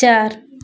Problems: constant background noise